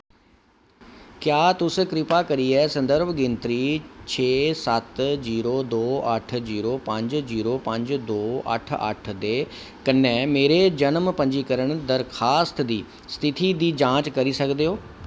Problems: none marked